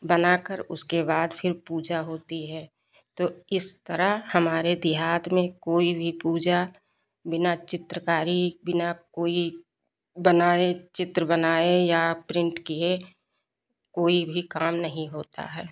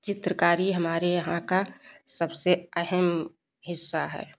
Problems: none marked